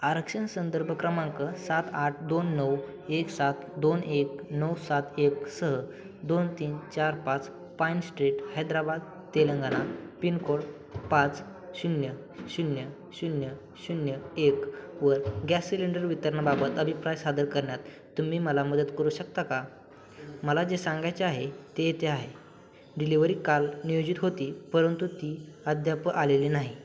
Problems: none marked